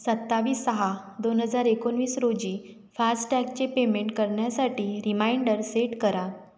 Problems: none marked